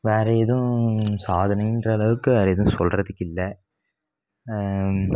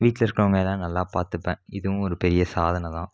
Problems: none marked